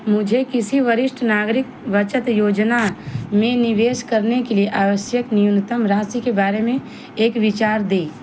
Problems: none marked